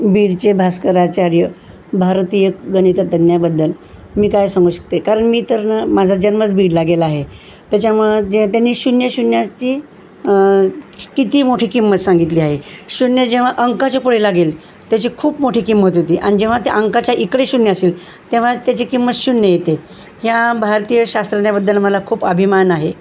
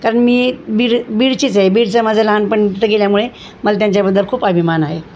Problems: constant background noise, background conversations at intervals